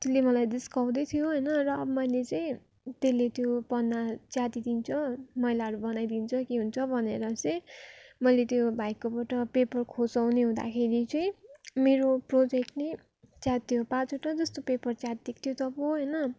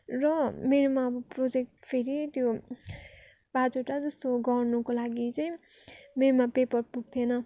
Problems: none marked